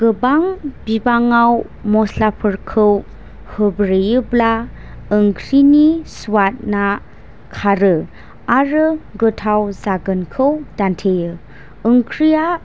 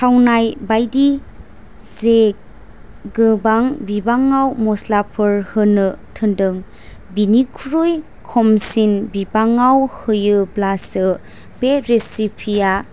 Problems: none marked